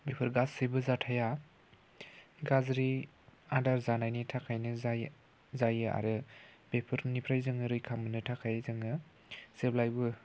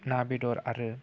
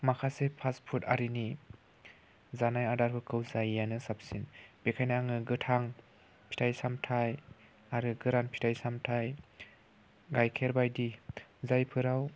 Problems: constant background noise